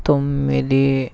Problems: none marked